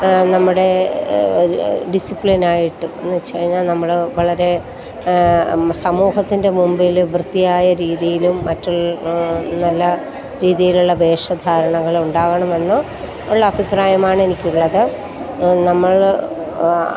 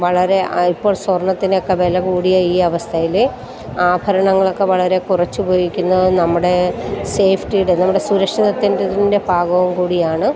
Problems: constant background noise